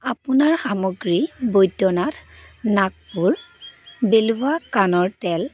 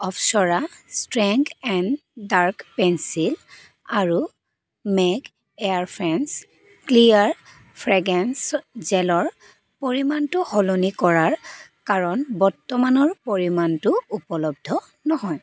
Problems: background sounds at intervals